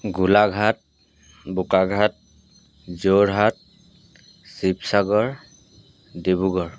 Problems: background sounds at intervals